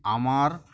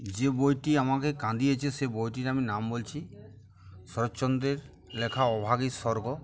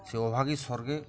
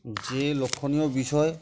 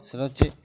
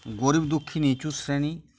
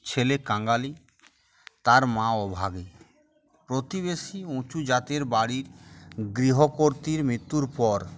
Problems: constant background noise, background conversations at intervals